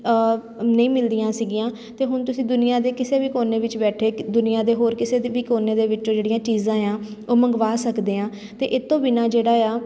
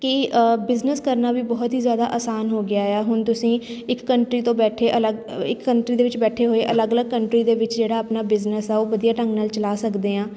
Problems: none marked